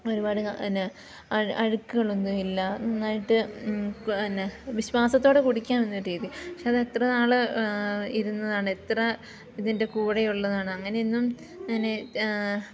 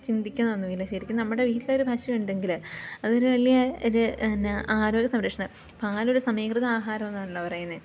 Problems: constant background noise, low volume